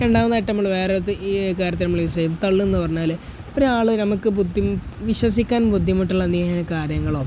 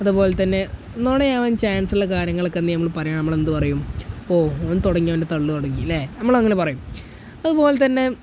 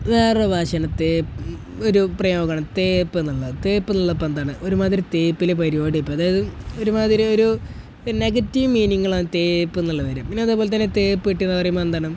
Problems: none marked